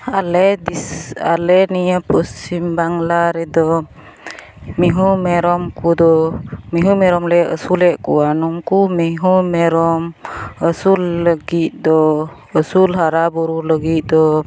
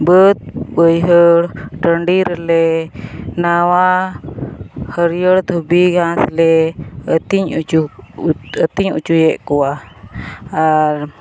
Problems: constant background noise, background conversations at intervals